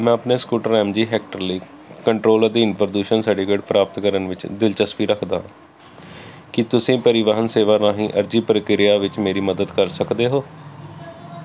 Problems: constant background noise